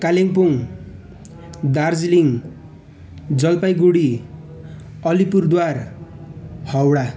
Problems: none marked